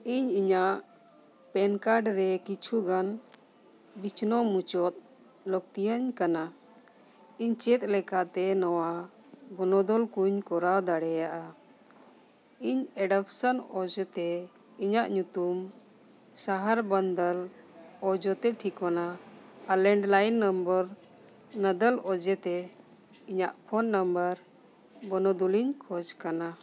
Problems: none marked